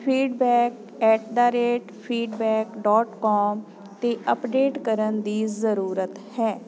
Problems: constant background noise